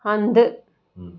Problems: none marked